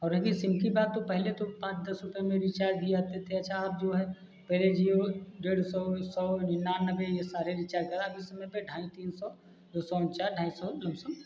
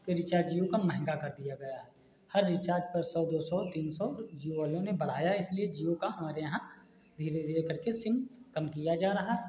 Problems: constant background noise